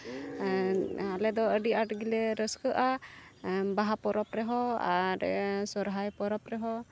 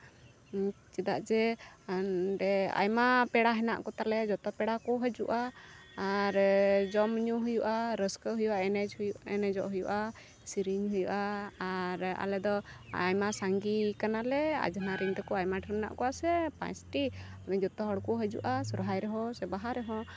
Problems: constant background noise